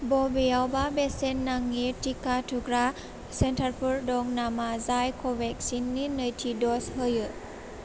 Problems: constant background noise